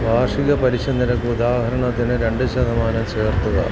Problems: constant background noise